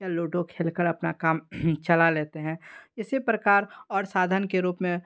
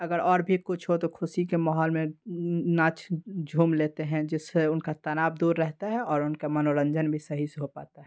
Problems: background sounds at intervals